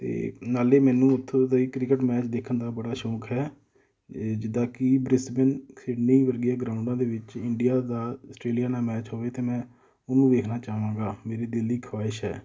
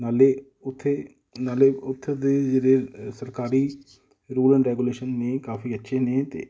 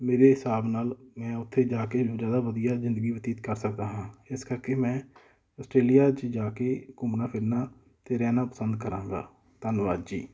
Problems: background sounds at intervals, background conversations at intervals